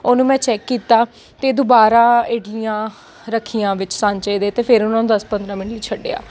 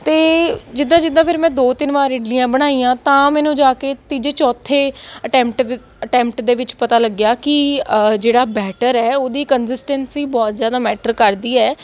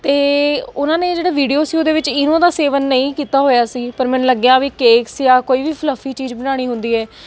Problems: constant background noise